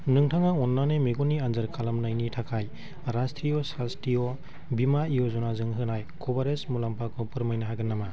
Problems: constant background noise